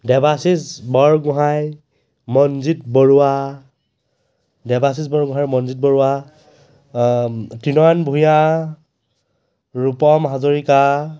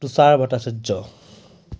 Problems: none marked